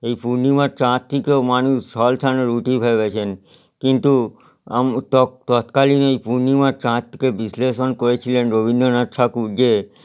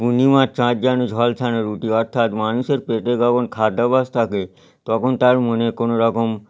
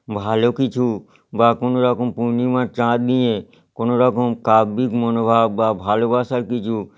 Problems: none marked